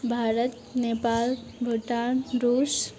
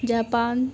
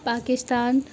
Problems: none marked